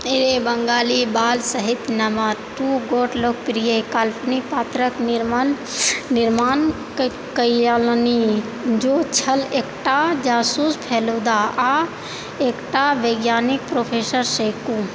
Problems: constant background noise